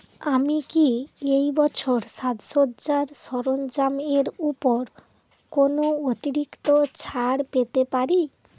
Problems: none marked